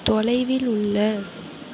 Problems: none marked